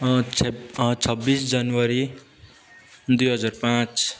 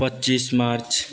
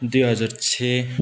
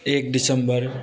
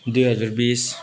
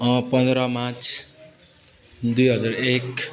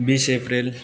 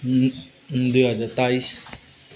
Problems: constant background noise